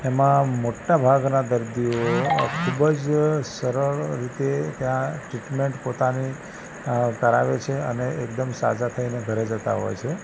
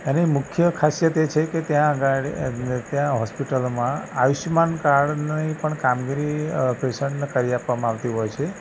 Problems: constant background noise